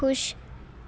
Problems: background conversations at intervals